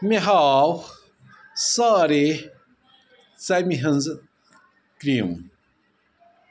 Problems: background sounds at intervals